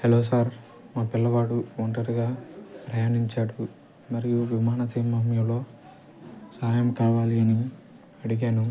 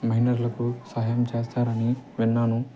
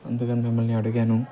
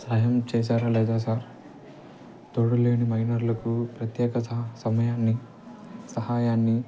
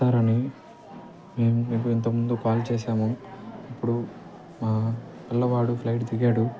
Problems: constant background noise